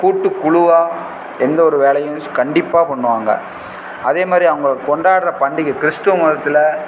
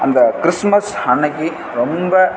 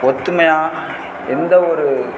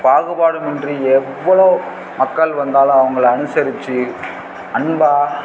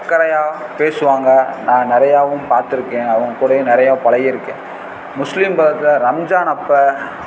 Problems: constant background noise